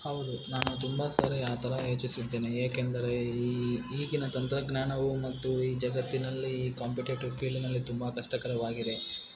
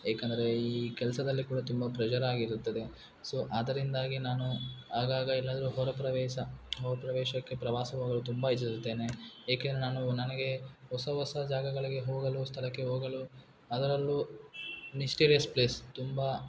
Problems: background sounds at intervals